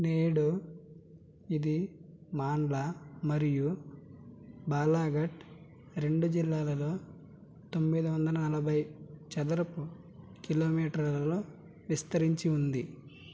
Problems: background sounds at intervals